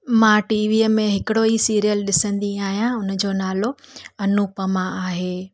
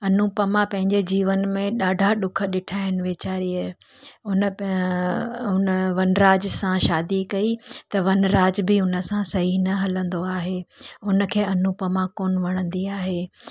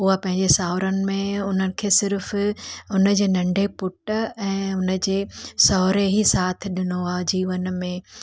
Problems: none marked